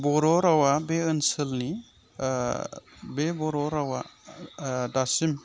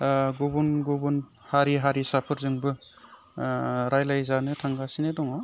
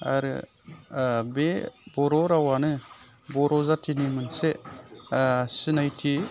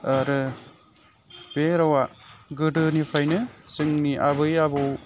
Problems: none marked